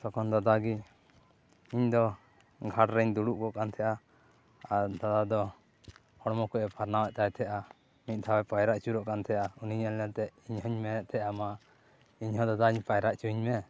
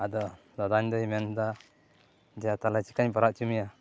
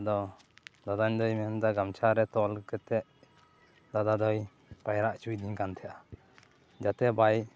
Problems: constant background noise, background conversations at intervals